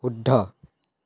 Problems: none marked